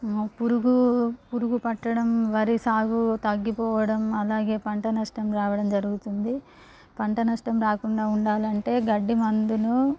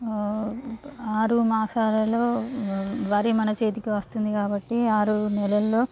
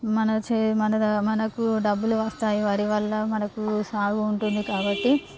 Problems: none marked